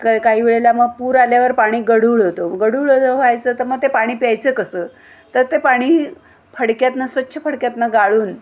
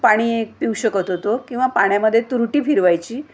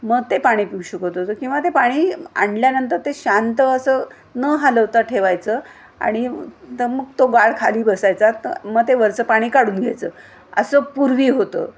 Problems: none marked